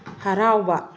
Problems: low volume